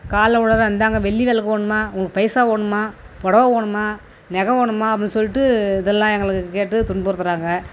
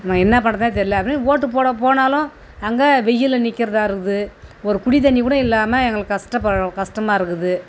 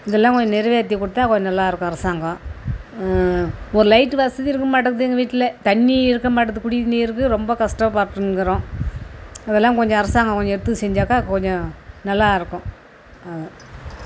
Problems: constant background noise